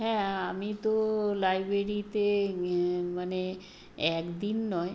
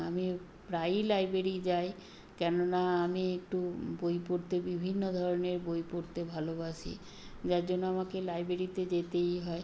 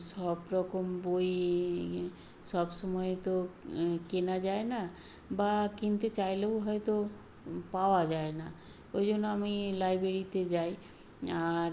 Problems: constant background noise